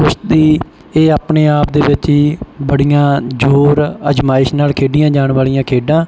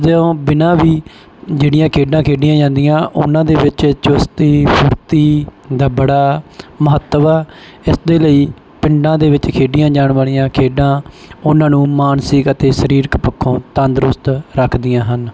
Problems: background sounds at intervals